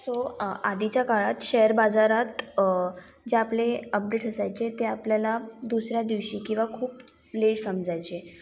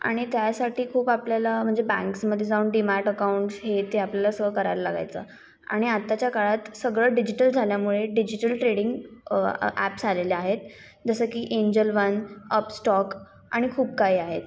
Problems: background sounds at intervals